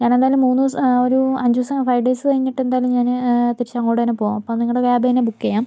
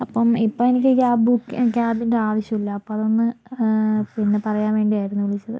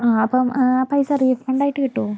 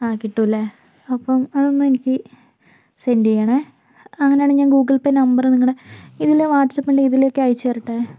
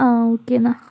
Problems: background sounds at intervals, low volume